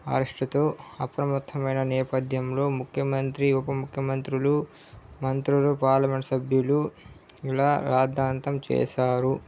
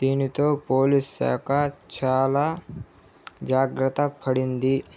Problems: none marked